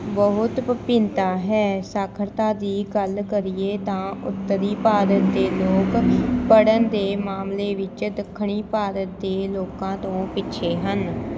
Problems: constant background noise, background conversations at intervals